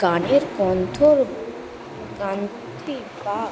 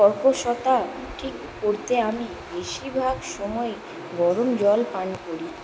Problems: constant background noise